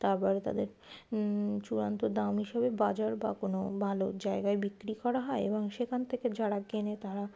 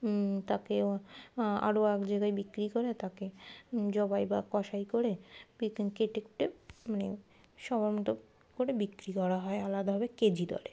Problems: background sounds at intervals